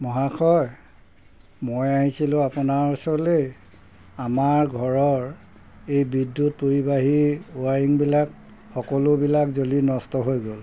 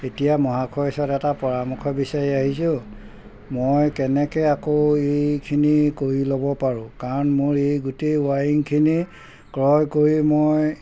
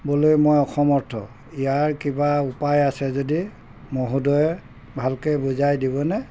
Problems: background sounds at intervals